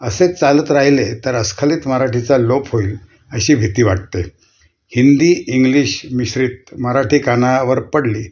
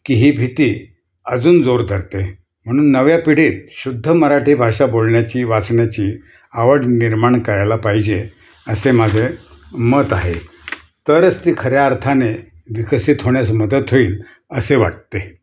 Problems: constant background noise